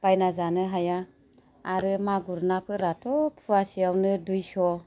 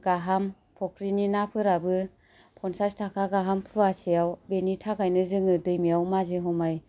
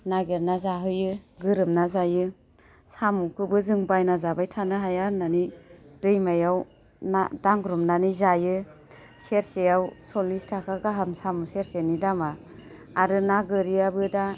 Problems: none marked